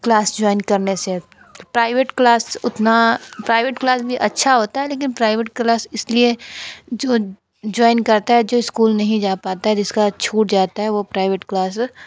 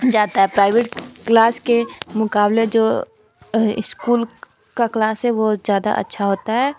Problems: constant background noise, continuous background conversations